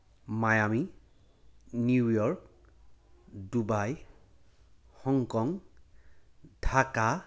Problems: background sounds at intervals